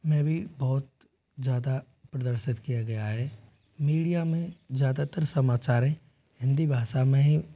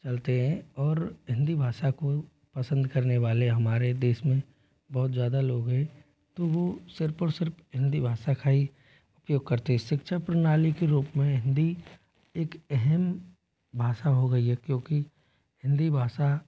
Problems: low volume